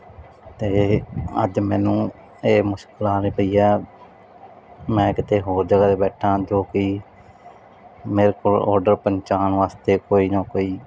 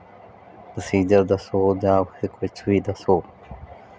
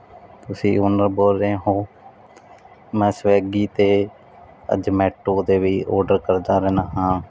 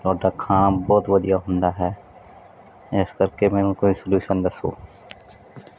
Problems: background sounds at intervals